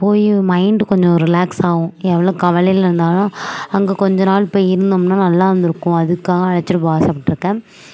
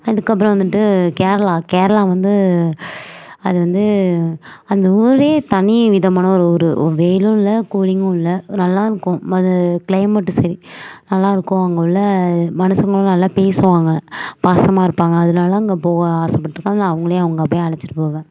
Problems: none marked